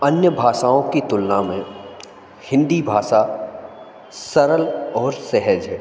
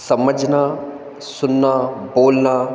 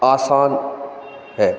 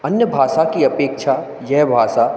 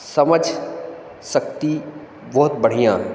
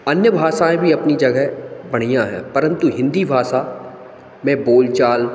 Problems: background sounds at intervals